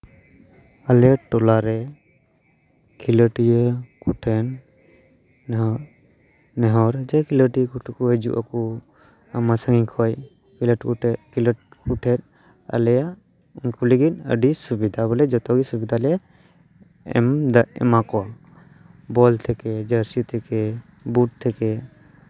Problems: none marked